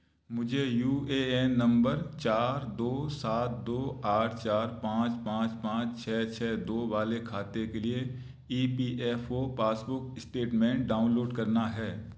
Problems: none marked